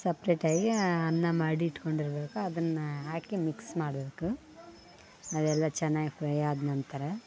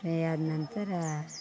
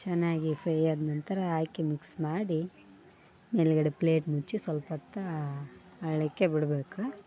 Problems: background conversations at intervals